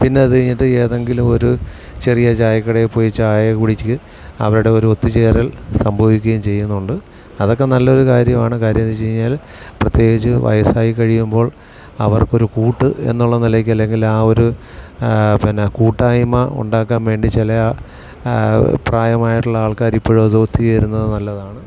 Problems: none marked